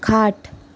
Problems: none marked